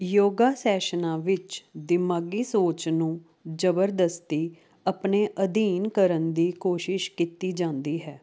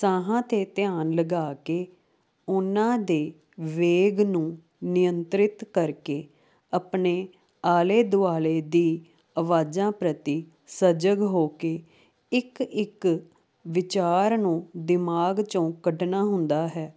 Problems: constant background noise